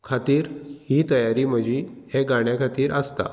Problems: background sounds at intervals